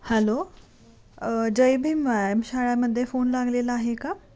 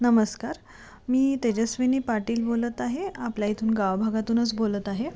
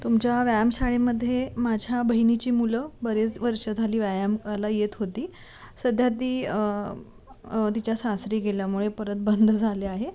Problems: constant background noise, background conversations at intervals